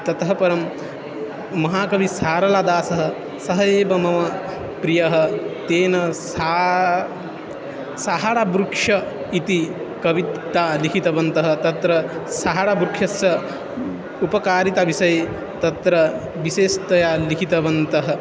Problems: none marked